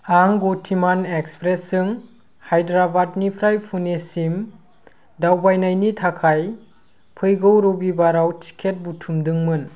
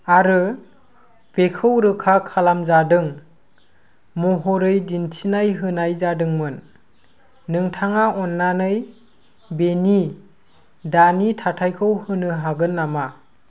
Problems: constant background noise